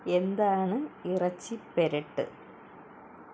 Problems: none marked